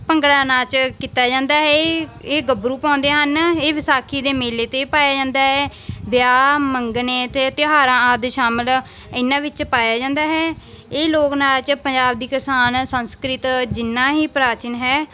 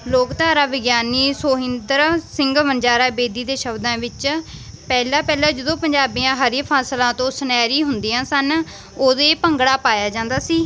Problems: constant background noise